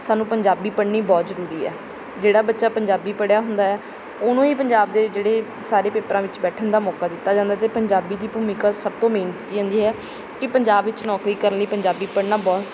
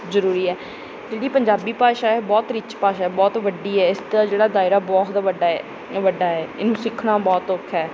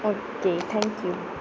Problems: background sounds at intervals